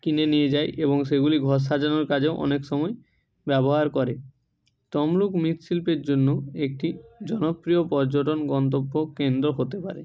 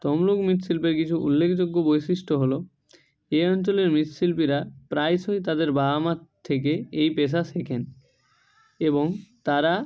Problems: none marked